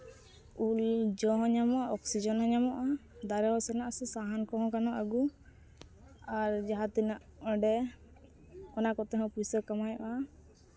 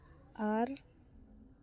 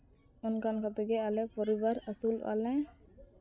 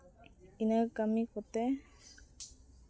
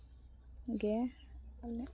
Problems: none marked